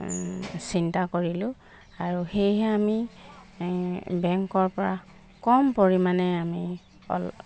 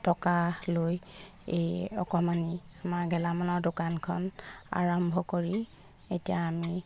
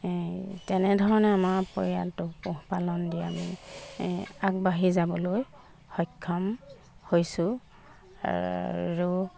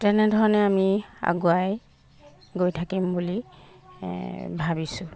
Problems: background sounds at intervals